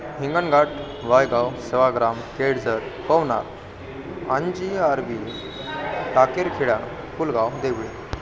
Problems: constant background noise, continuous background conversations